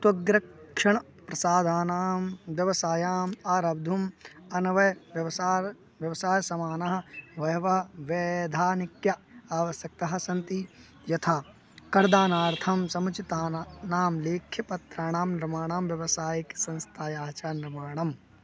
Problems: background sounds at intervals